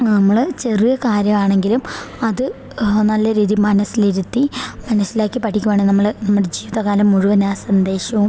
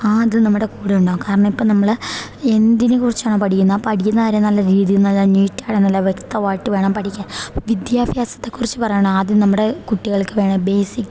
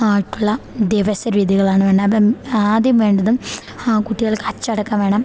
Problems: none marked